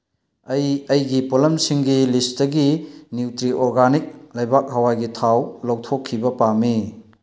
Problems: none marked